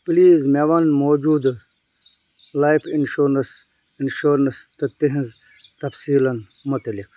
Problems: none marked